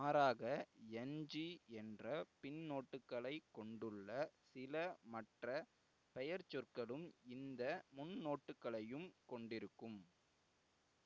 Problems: none marked